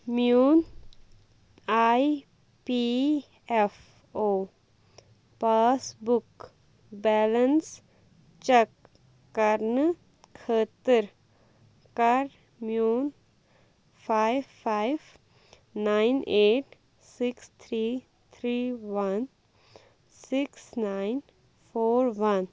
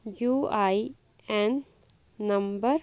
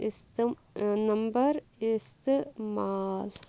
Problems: constant background noise